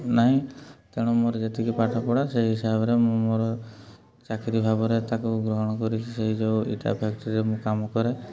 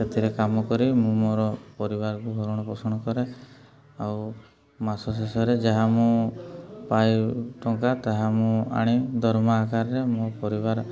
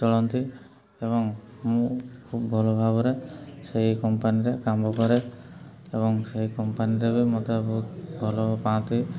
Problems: background sounds at intervals, continuous background conversations, low volume